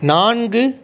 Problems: none marked